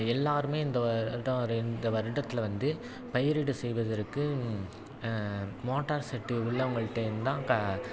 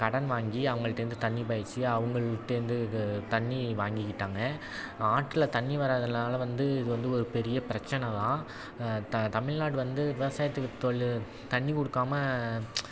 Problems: background sounds at intervals, background conversations at intervals